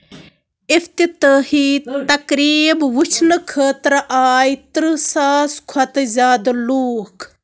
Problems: constant background noise